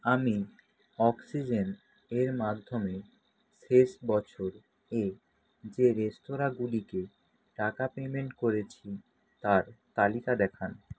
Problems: constant background noise